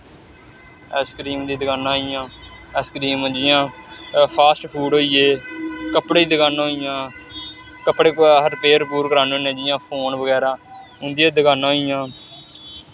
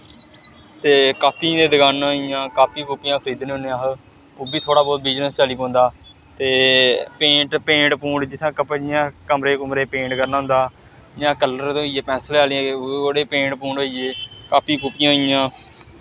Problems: none marked